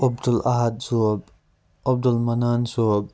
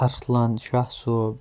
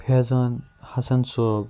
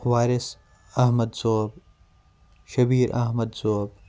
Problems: background sounds at intervals